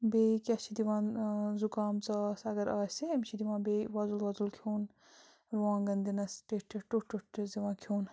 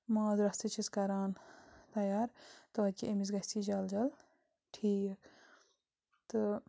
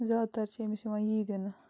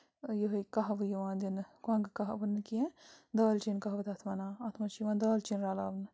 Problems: constant background noise